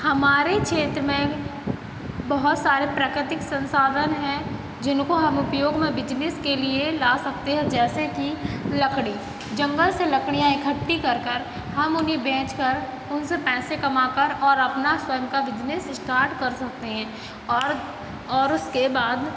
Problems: none marked